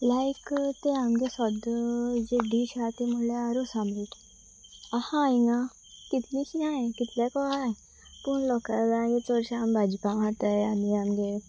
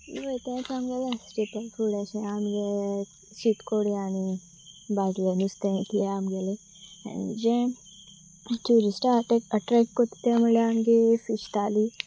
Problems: background sounds at intervals